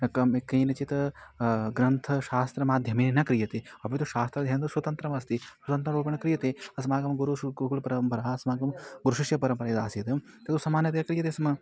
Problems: none marked